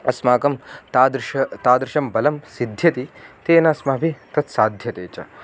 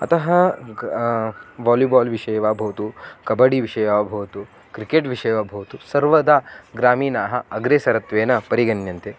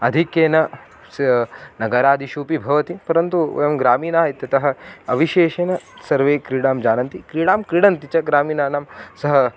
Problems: background sounds at intervals